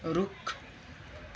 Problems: none marked